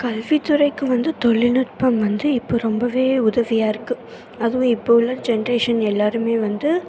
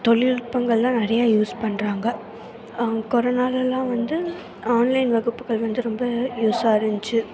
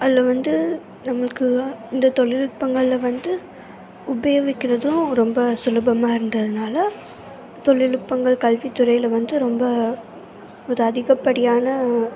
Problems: constant background noise, continuous background conversations